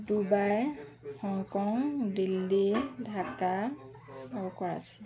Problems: none marked